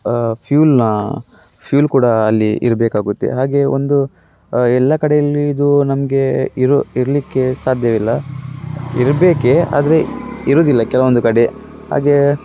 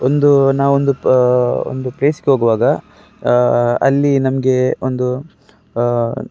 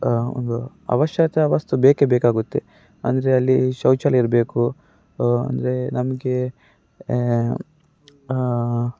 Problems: none marked